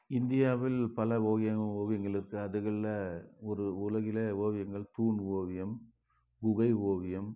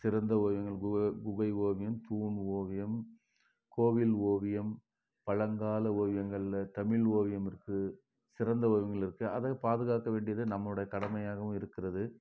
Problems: background sounds at intervals